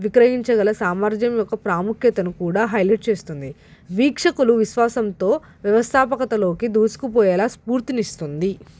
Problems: background sounds at intervals